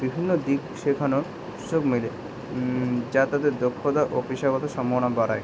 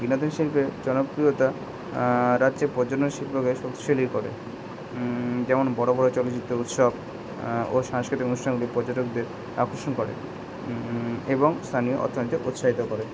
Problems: constant background noise